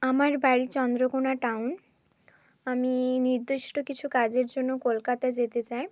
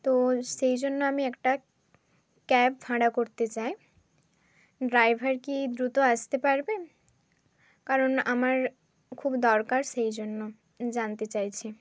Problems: constant background noise